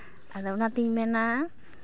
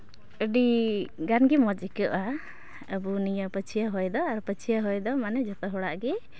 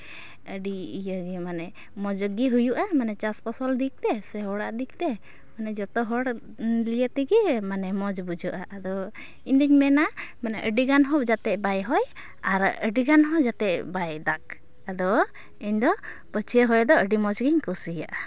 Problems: none marked